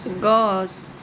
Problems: background sounds at intervals